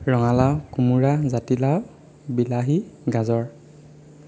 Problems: constant background noise